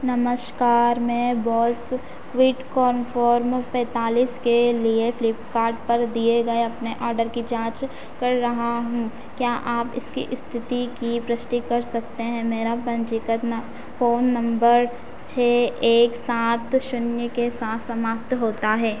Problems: constant background noise